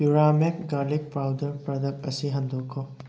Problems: none marked